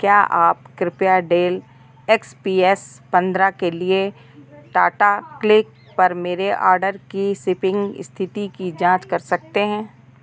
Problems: none marked